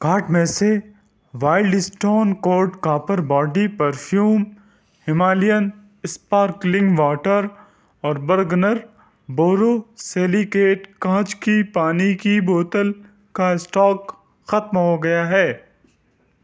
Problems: none marked